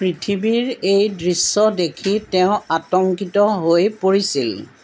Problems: background sounds at intervals